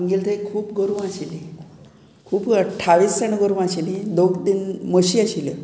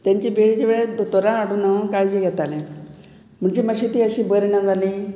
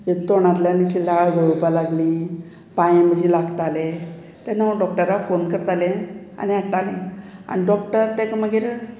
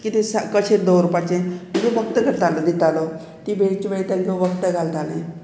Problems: none marked